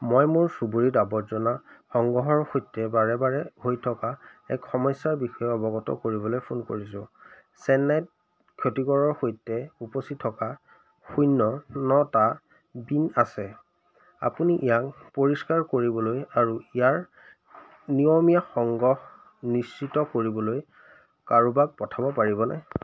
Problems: constant background noise